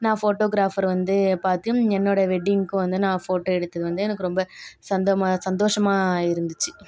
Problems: background sounds at intervals